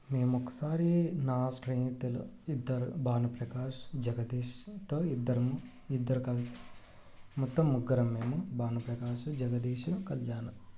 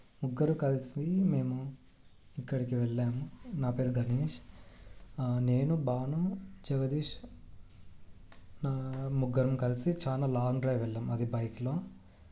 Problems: none marked